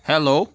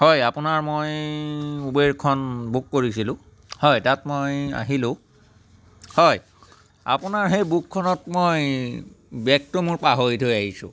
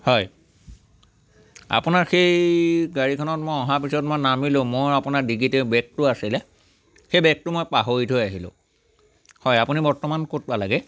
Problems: none marked